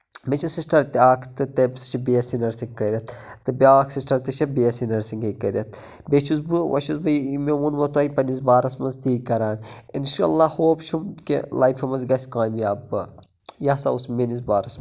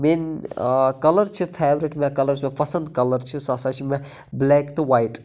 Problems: none marked